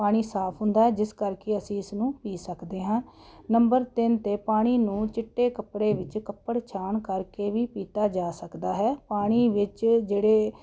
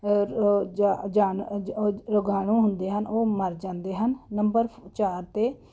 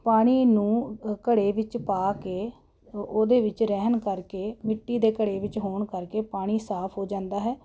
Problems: none marked